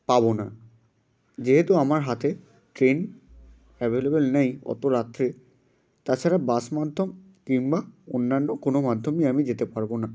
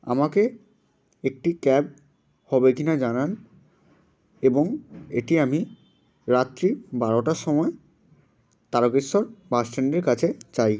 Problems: constant background noise